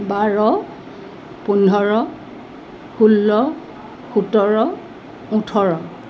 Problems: none marked